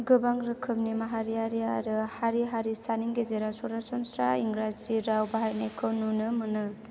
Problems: none marked